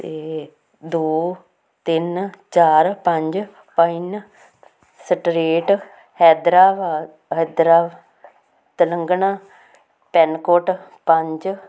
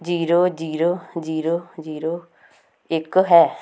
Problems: constant background noise